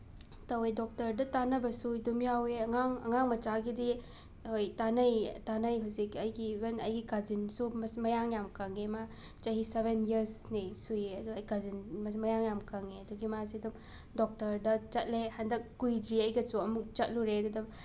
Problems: background sounds at intervals